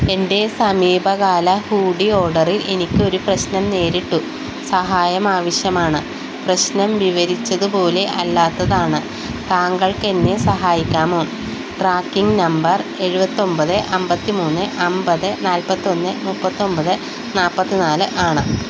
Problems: constant background noise